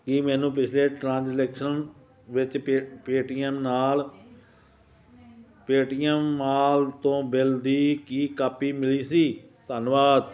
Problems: none marked